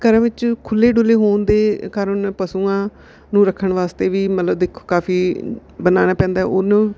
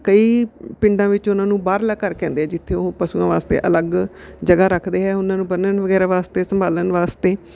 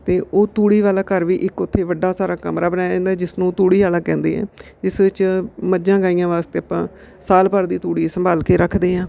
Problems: background sounds at intervals